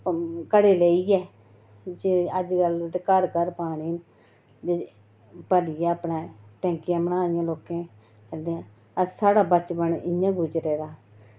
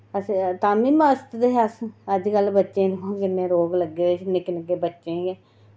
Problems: none marked